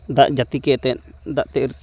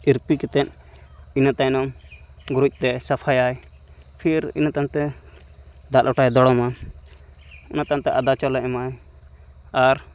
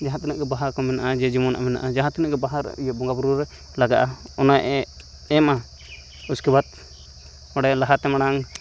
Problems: none marked